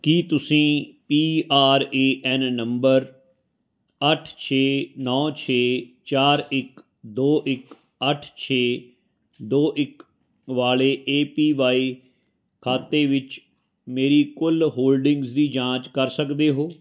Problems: none marked